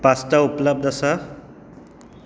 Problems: background sounds at intervals